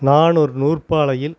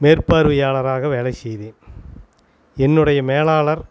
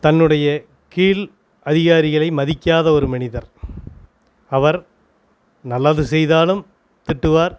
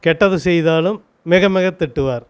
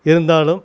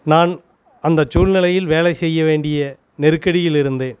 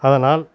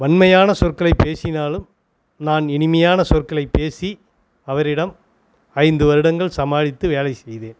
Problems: constant background noise